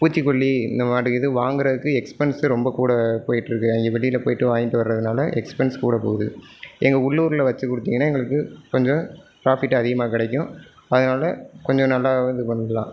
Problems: low volume